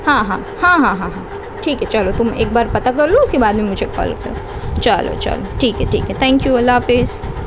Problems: constant background noise